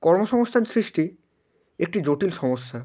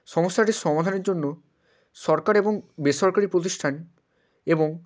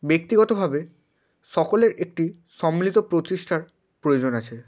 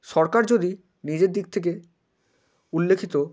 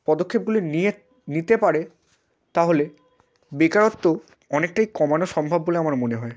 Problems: constant background noise